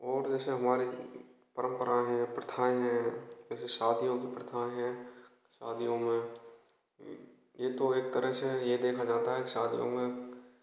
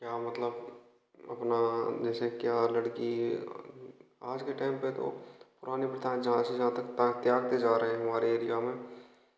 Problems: none marked